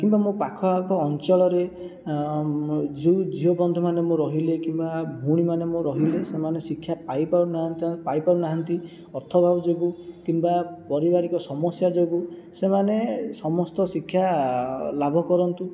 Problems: none marked